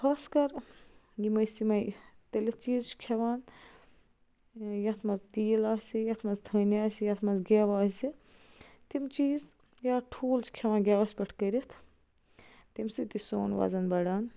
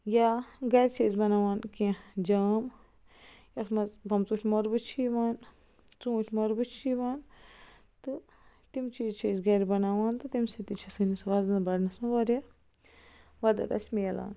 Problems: constant background noise